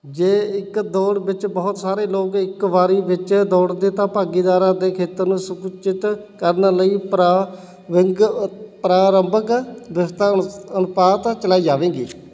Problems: constant background noise